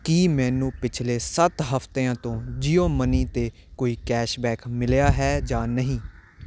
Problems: constant background noise